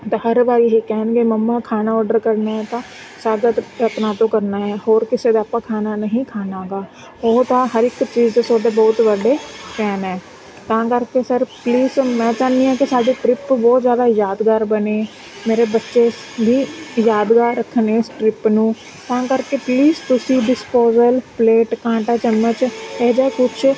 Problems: constant background noise